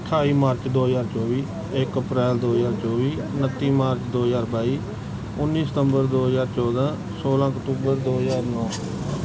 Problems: background sounds at intervals